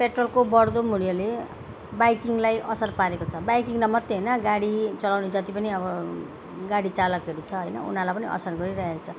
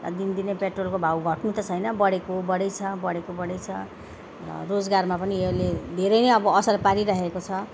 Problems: background sounds at intervals